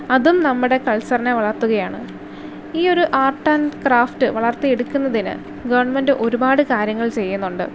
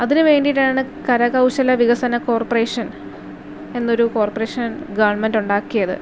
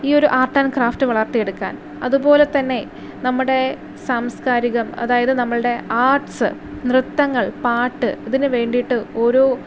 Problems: none marked